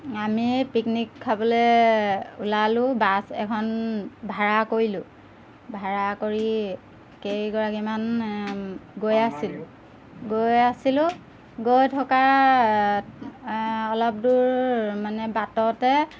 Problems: background sounds at intervals